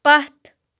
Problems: background sounds at intervals